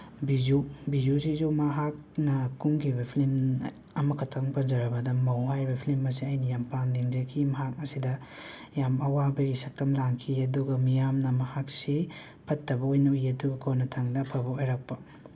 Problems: constant background noise